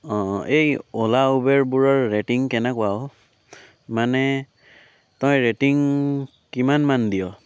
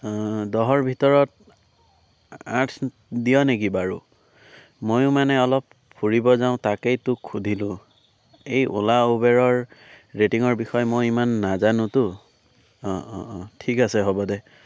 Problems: none marked